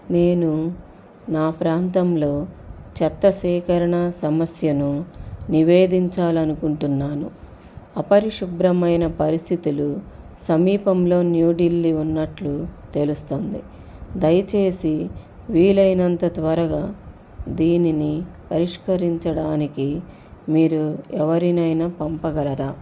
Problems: constant background noise